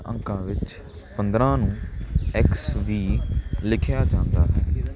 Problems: none marked